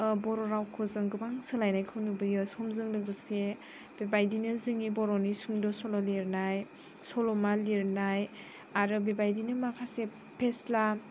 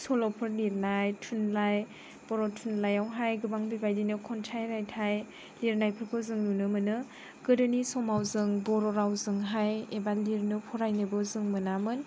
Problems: background conversations at intervals